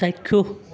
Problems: constant background noise, background conversations at intervals